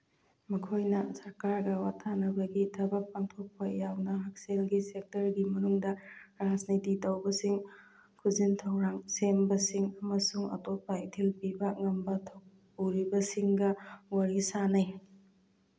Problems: none marked